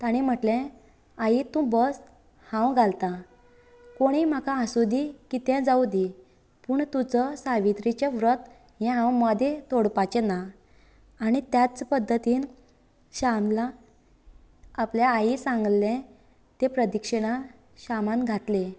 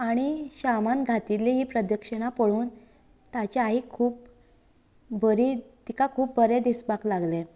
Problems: none marked